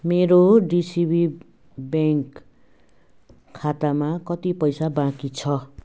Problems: background sounds at intervals